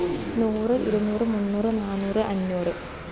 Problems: constant background noise